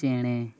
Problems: none marked